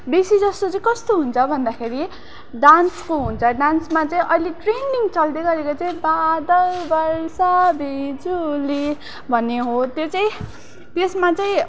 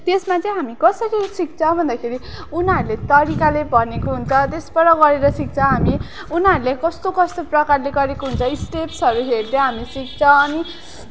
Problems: constant background noise